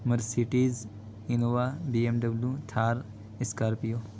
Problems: constant background noise